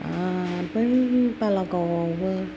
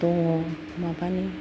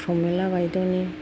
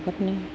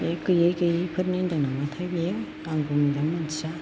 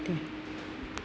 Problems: background sounds at intervals